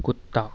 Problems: constant background noise, low volume